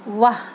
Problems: constant background noise, low volume